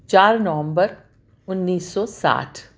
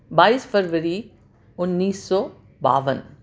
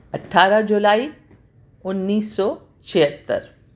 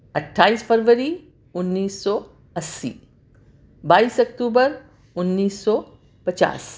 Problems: none marked